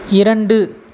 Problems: constant background noise